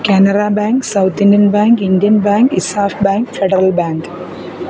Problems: none marked